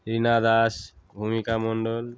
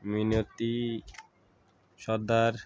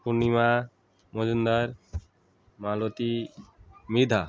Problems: continuous background conversations